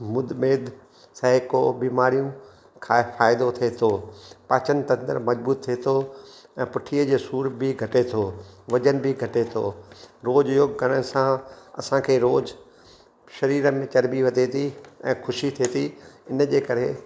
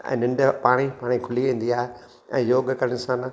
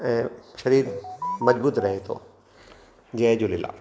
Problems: constant background noise, echo